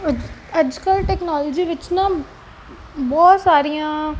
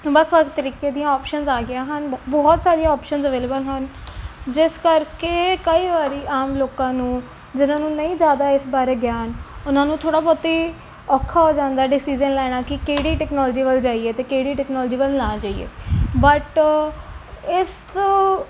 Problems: background sounds at intervals